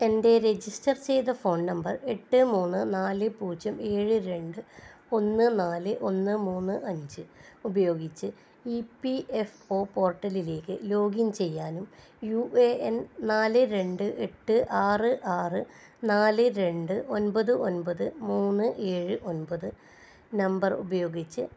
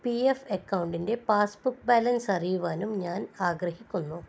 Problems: low volume